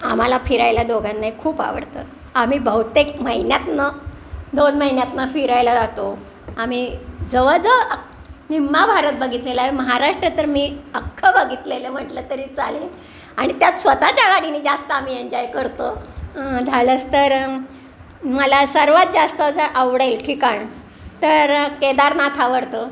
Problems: none marked